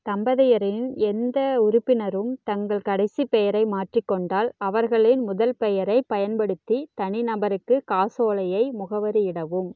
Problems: none marked